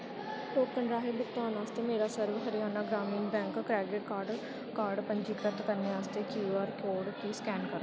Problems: background sounds at intervals